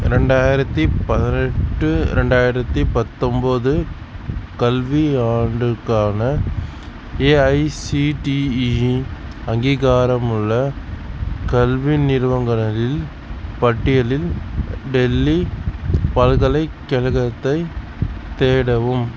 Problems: constant background noise